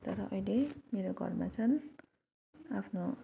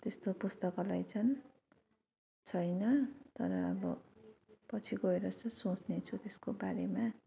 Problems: none marked